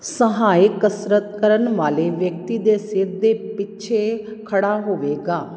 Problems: none marked